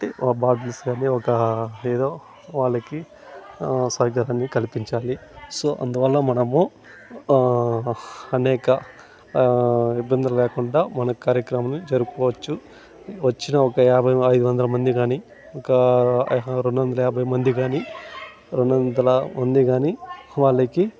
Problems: constant background noise, background conversations at intervals